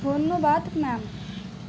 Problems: background sounds at intervals